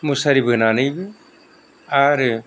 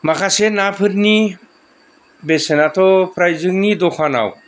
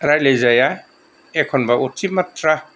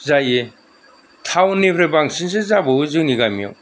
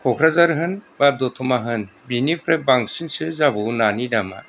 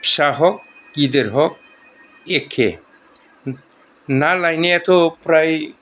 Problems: none marked